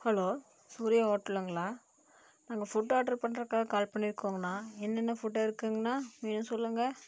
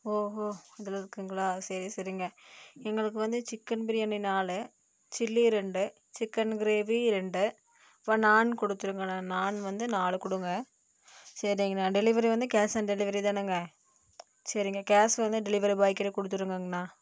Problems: low volume